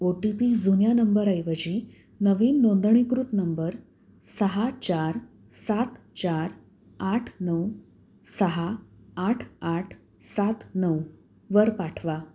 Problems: none marked